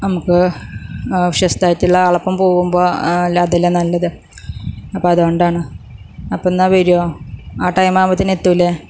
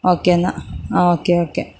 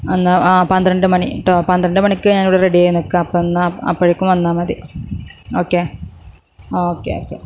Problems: none marked